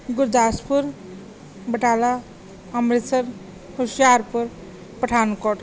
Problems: background sounds at intervals